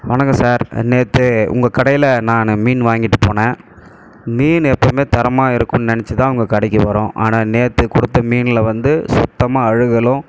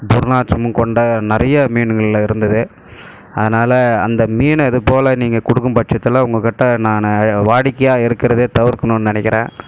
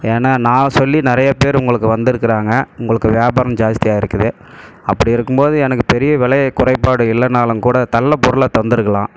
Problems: background sounds at intervals